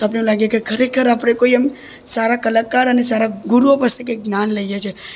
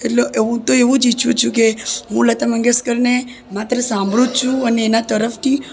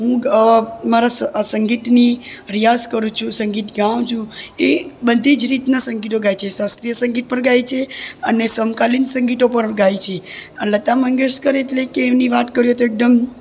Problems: none marked